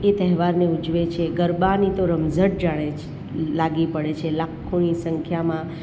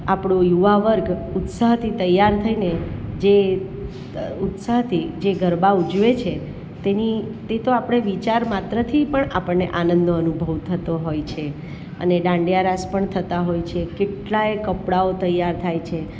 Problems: none marked